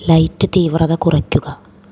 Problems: low volume